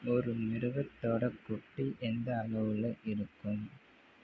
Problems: none marked